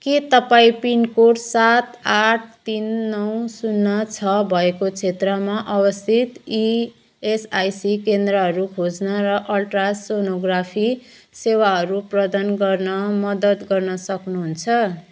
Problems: background sounds at intervals